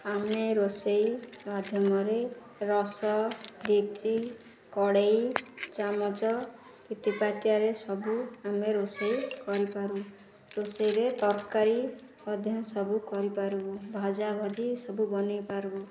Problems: constant background noise, continuous background conversations